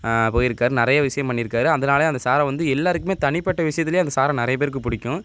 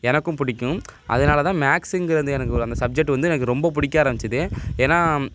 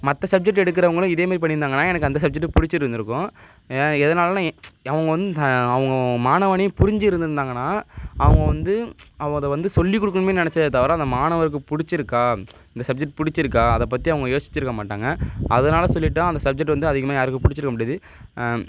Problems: none marked